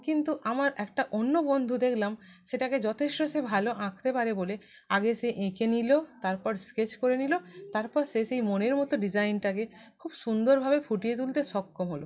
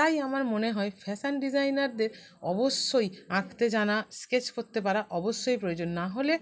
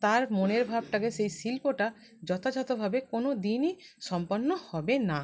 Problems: background sounds at intervals